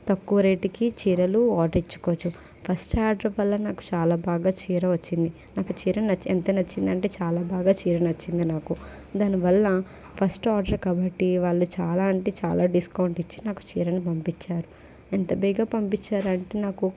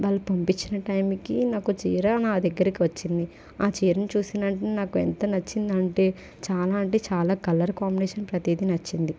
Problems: constant background noise